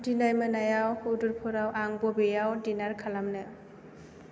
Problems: none marked